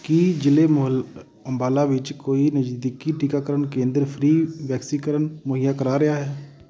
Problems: background sounds at intervals